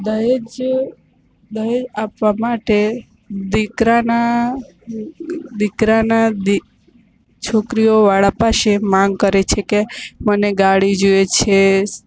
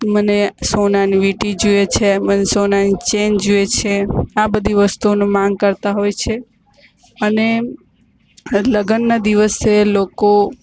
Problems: constant background noise